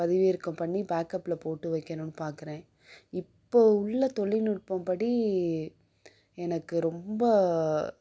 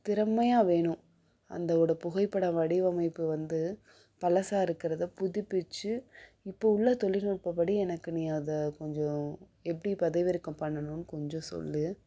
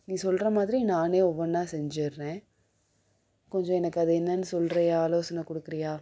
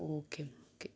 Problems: background sounds at intervals